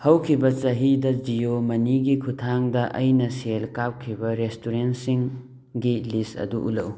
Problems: none marked